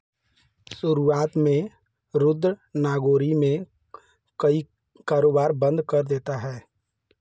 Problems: background sounds at intervals, low volume